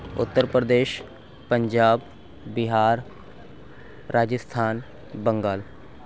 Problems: none marked